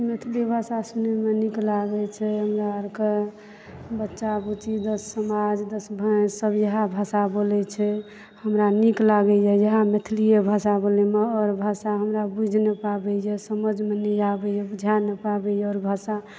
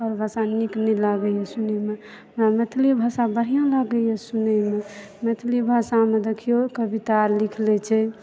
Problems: background sounds at intervals